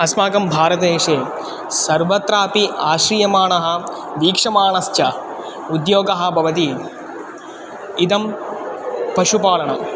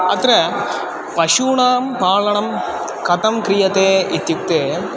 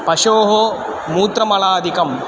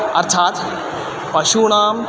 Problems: constant background noise